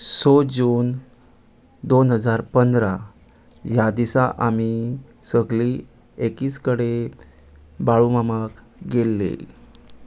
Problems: background sounds at intervals